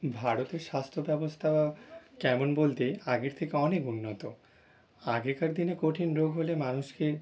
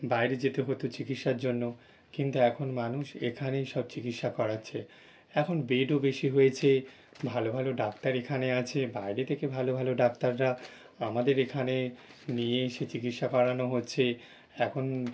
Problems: background sounds at intervals